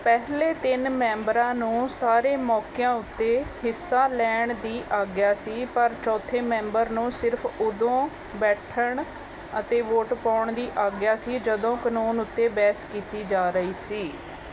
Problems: background sounds at intervals